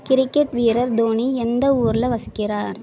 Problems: background conversations at intervals